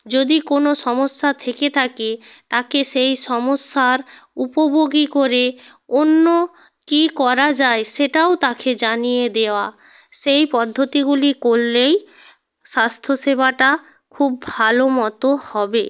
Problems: constant background noise